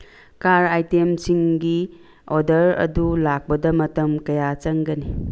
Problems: background sounds at intervals